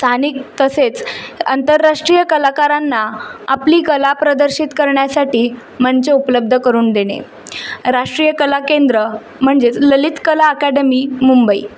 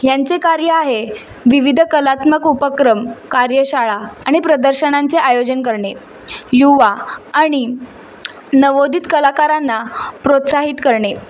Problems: constant background noise